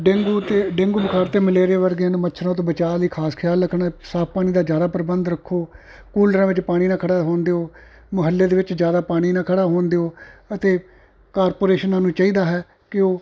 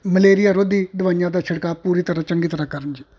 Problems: constant background noise